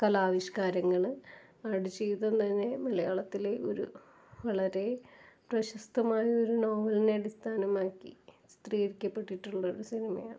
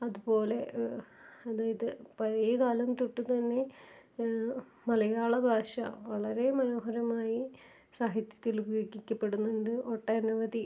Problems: low volume